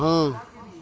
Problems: low volume